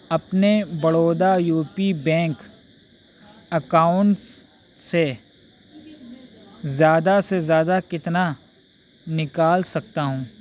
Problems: constant background noise